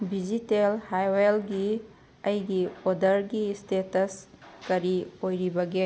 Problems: none marked